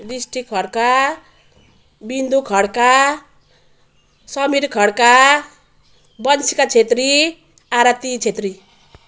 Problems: none marked